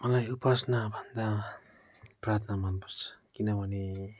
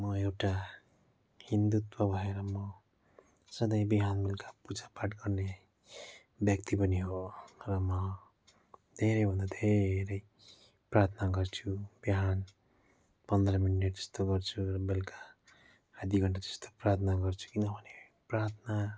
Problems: background sounds at intervals